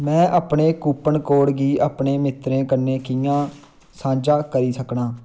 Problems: none marked